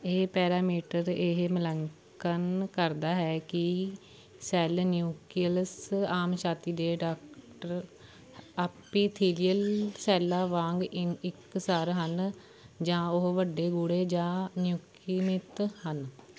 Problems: background conversations at intervals